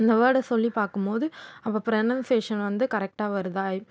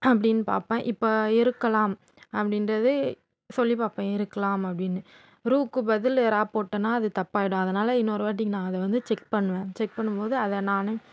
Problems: constant background noise